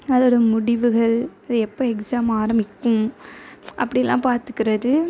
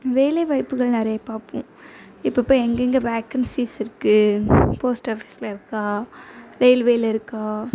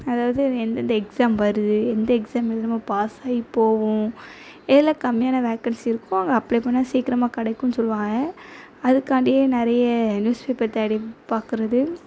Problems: background sounds at intervals